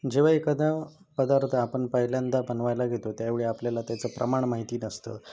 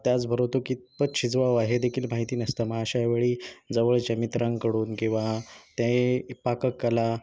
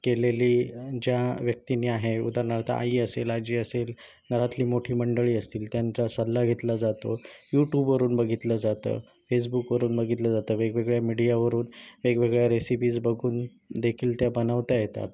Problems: background sounds at intervals